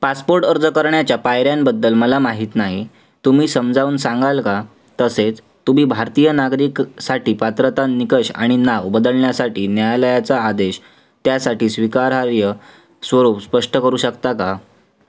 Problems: none marked